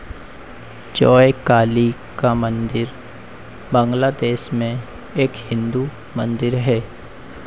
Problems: constant background noise